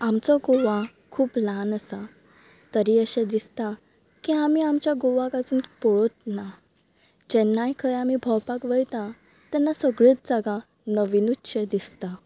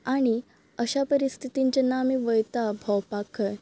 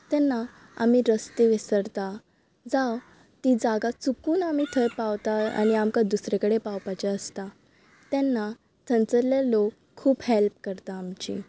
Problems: background sounds at intervals, background conversations at intervals